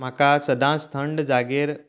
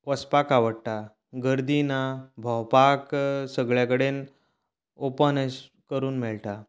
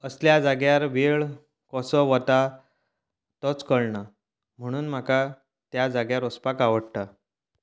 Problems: none marked